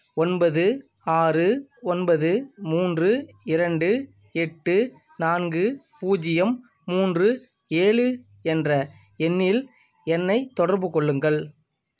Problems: constant background noise